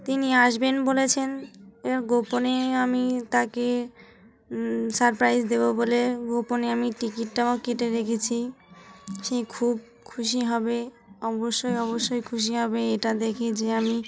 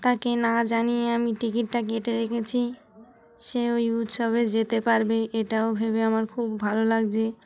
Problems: constant background noise, continuous background conversations